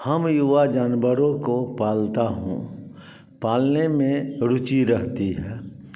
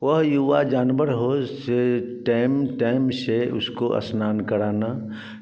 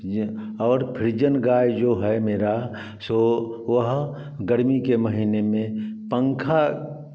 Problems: background sounds at intervals, background conversations at intervals, echo